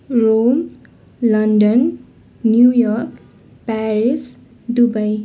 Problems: continuous background conversations